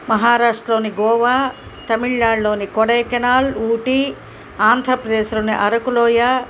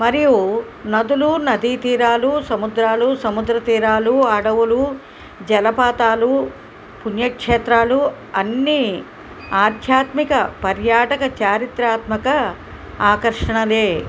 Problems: none marked